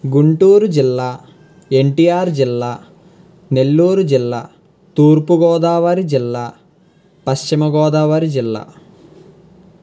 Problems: constant background noise